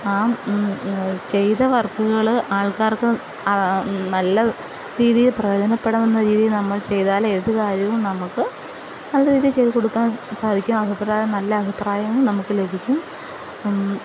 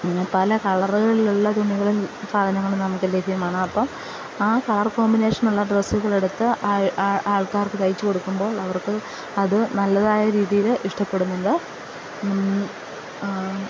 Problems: constant background noise, low volume